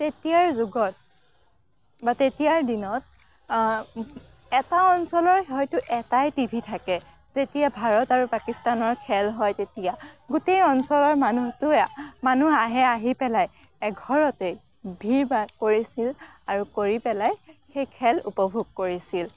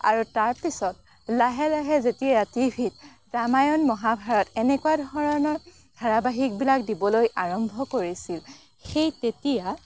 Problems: none marked